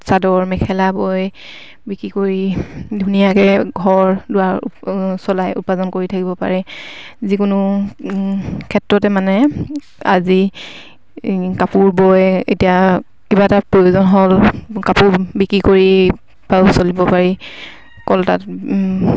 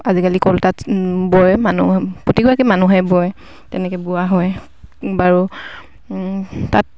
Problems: none marked